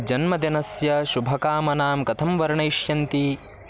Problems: constant background noise